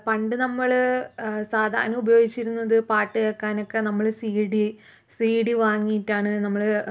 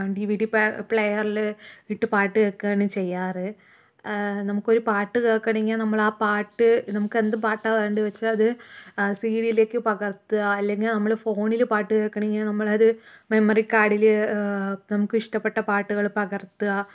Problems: none marked